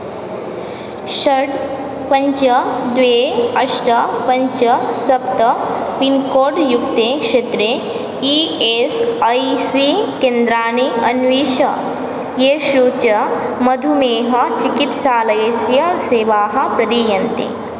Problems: constant background noise